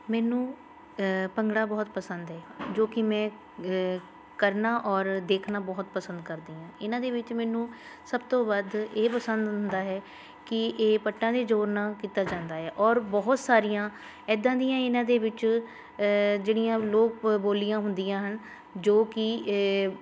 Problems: constant background noise, background conversations at intervals